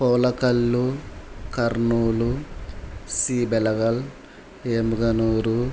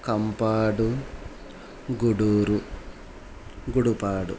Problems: background sounds at intervals